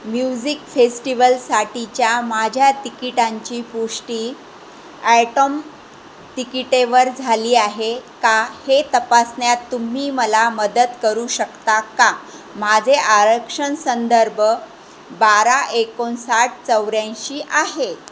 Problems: constant background noise, background conversations at intervals